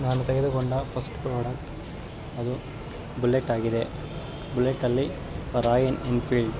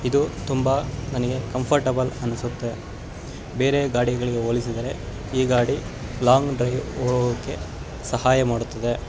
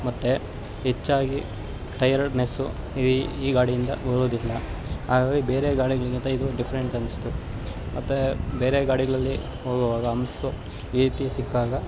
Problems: constant background noise